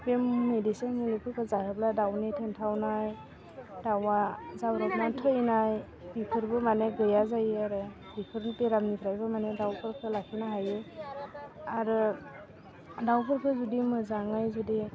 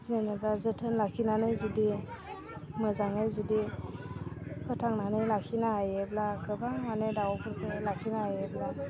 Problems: low volume